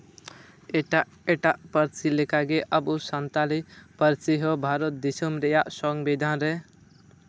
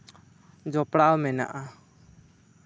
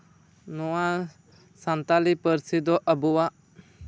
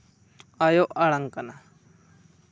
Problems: none marked